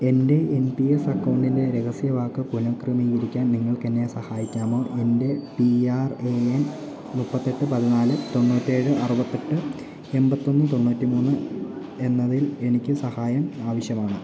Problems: constant background noise